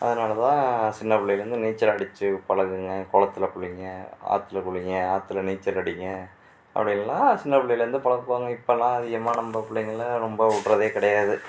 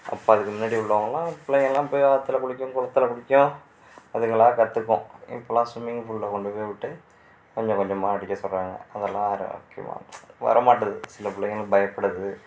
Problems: background sounds at intervals